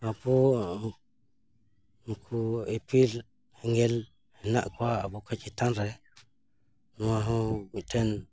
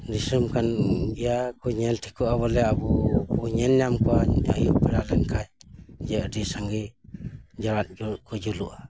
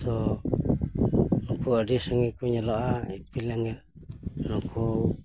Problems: constant background noise